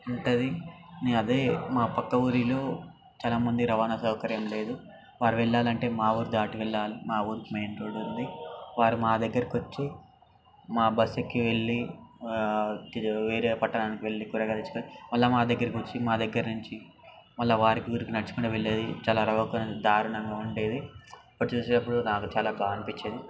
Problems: constant background noise